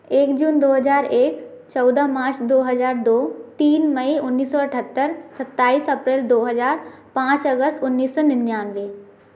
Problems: constant background noise